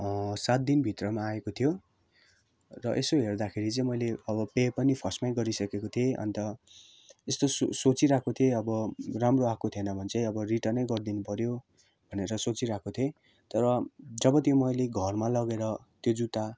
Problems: none marked